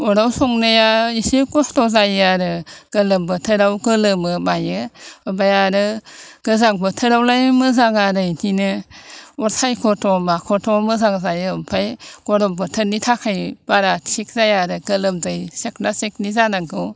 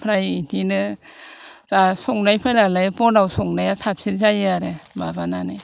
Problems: none marked